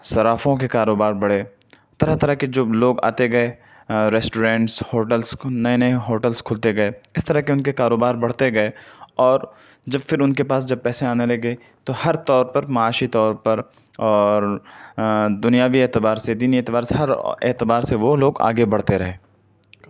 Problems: none marked